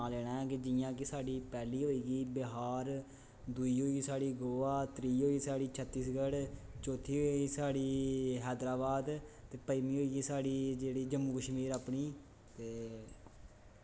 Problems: constant background noise, echo